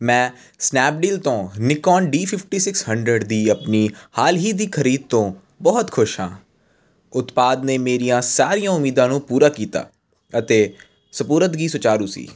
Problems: none marked